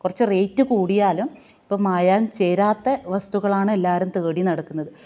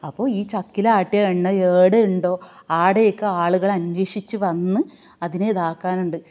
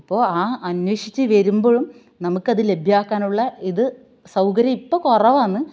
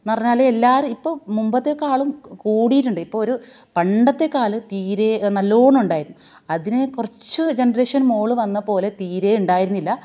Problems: none marked